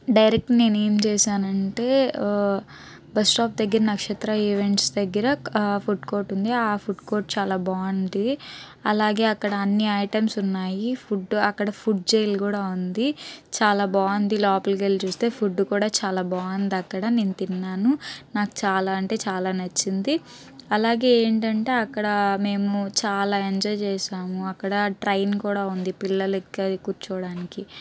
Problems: background sounds at intervals